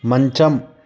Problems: constant background noise